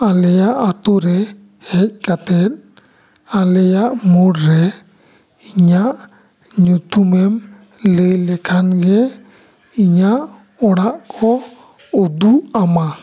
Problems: constant background noise